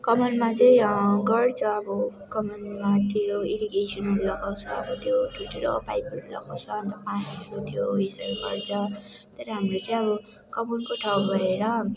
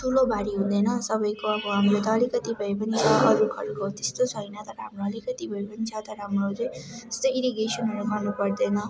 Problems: constant background noise